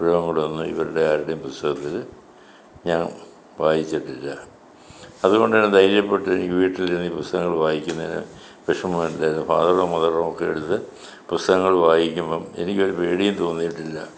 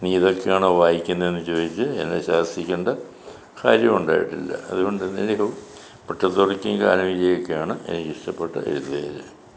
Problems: none marked